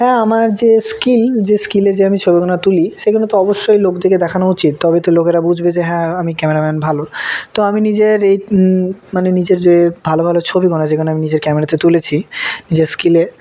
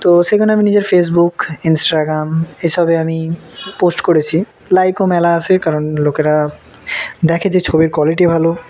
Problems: constant background noise, background conversations at intervals